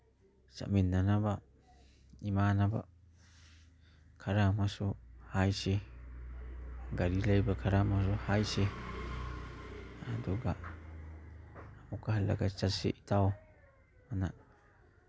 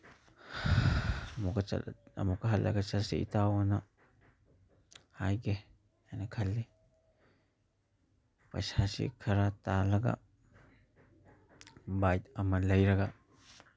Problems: background sounds at intervals